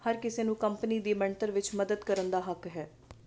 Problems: constant background noise